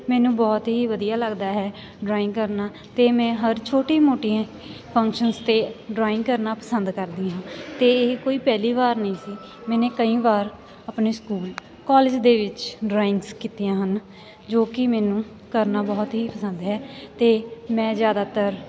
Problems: none marked